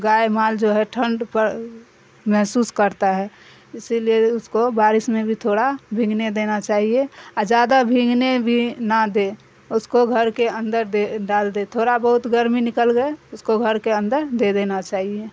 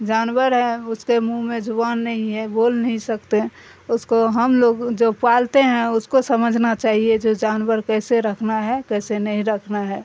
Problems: constant background noise